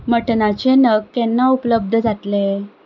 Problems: constant background noise